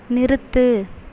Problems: none marked